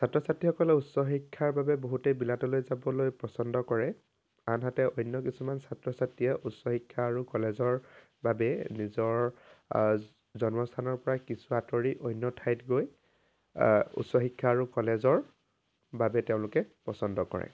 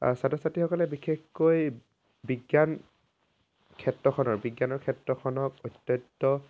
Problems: background sounds at intervals